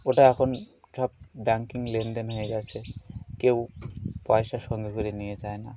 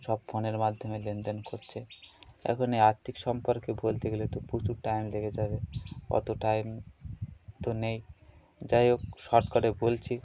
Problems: constant background noise, continuous background conversations